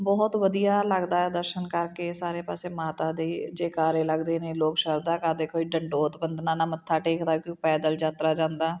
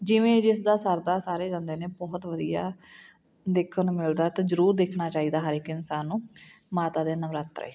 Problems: background sounds at intervals